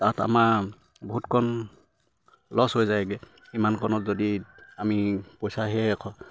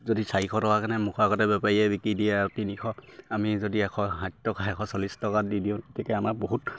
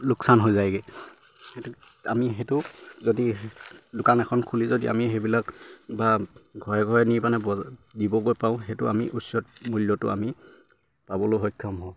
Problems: none marked